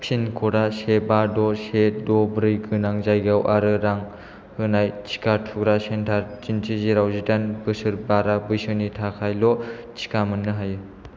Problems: low volume